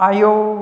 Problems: constant background noise